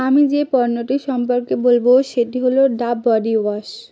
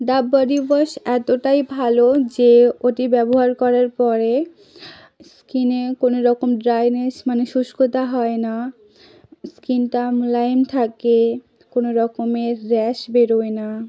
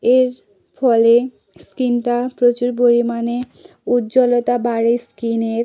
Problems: none marked